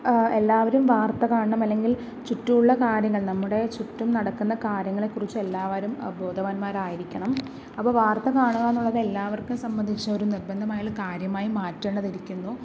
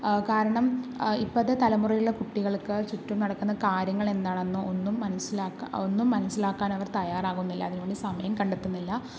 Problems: background sounds at intervals, low volume